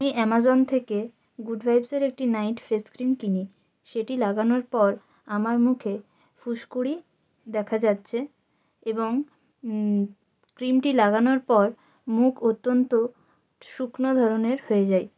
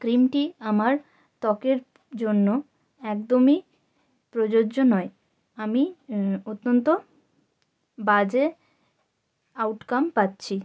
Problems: none marked